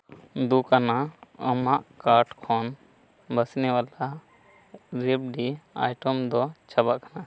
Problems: constant background noise, background conversations at intervals